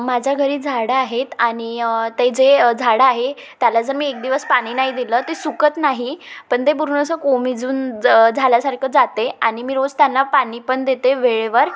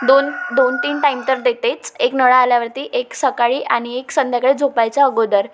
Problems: background sounds at intervals